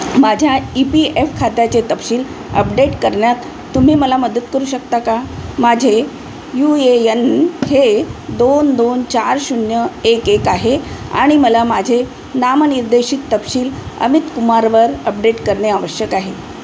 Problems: constant background noise